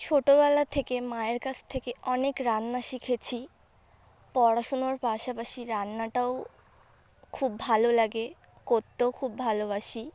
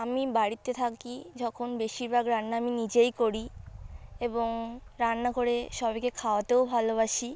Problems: background sounds at intervals, background conversations at intervals